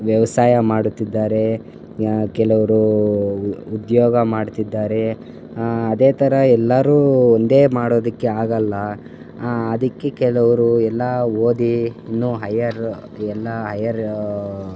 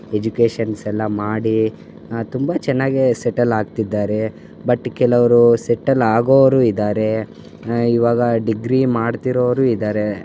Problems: constant background noise